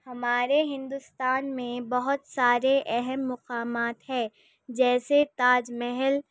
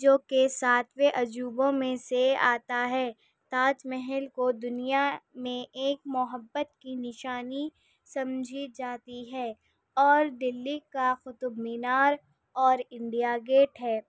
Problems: background conversations at intervals